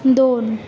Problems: constant background noise